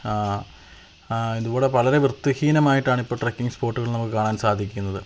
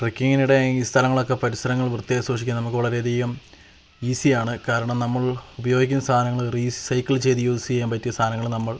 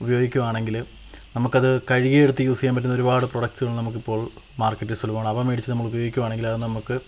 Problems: none marked